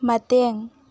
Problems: none marked